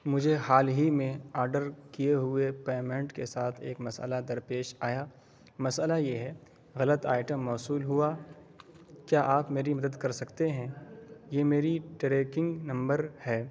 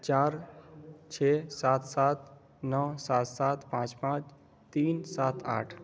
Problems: constant background noise